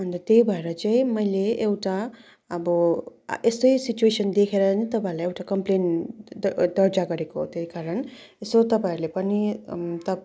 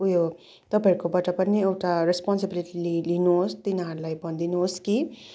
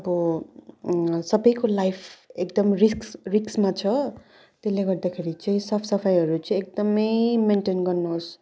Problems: background sounds at intervals